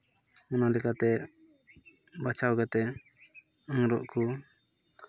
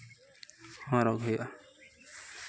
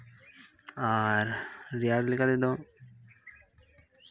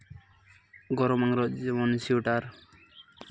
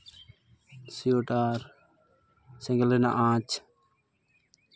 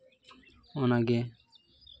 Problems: none marked